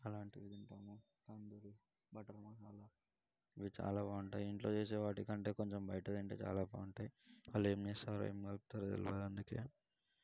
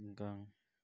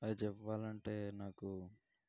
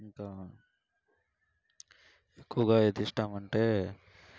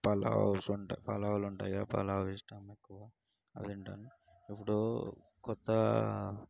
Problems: low volume